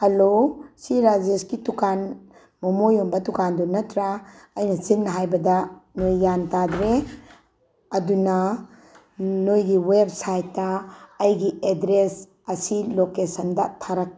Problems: background sounds at intervals